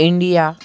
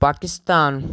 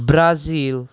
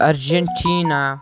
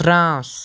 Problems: none marked